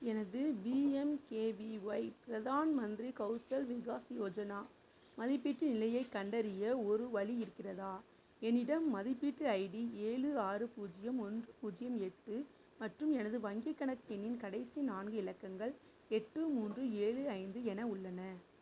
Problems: low volume